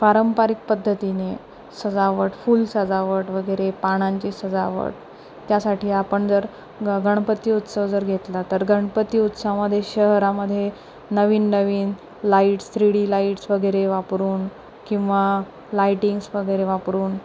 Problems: none marked